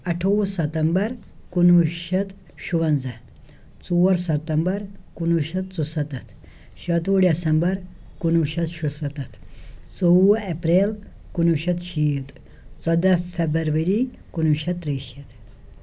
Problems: none marked